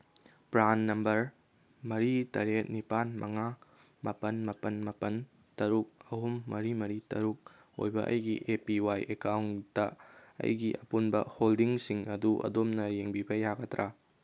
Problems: none marked